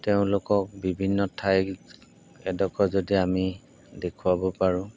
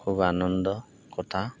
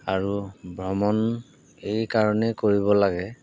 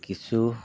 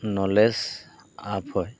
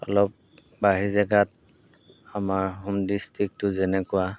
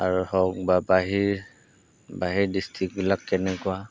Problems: background sounds at intervals